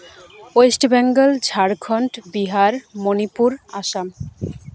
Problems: background conversations at intervals